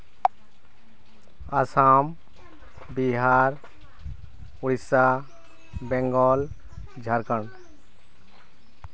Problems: none marked